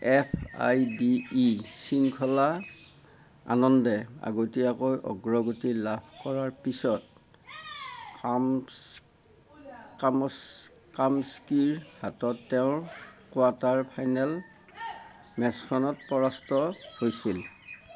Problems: constant background noise